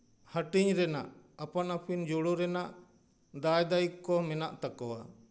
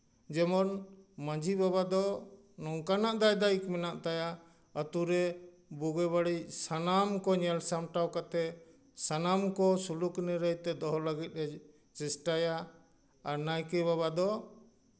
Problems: none marked